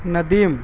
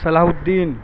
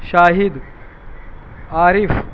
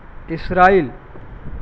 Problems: constant background noise